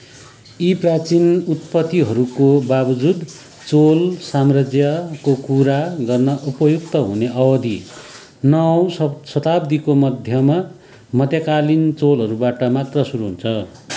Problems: background sounds at intervals